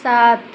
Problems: none marked